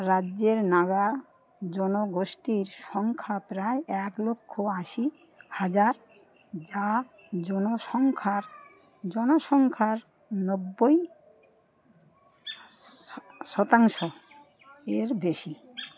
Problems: constant background noise, continuous background conversations